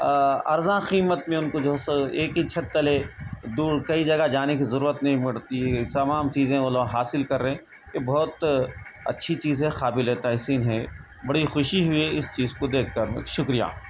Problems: constant background noise